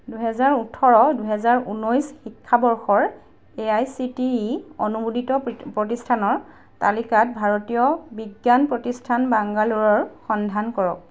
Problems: none marked